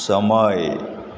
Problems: constant background noise, echo